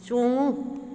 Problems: none marked